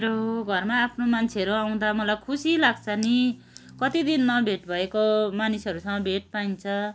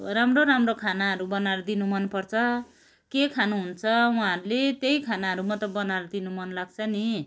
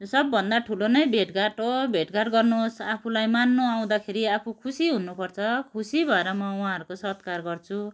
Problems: none marked